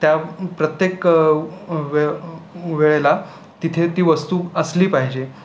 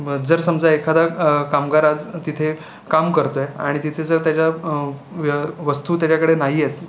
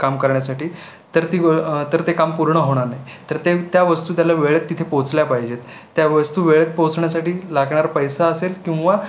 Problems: none marked